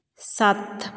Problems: none marked